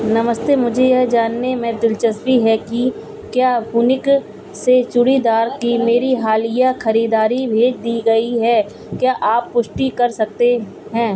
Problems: none marked